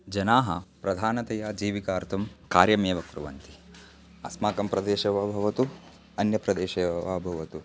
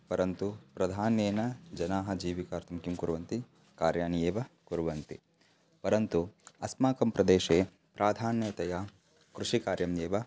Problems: background sounds at intervals